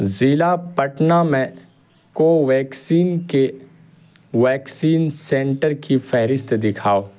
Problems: constant background noise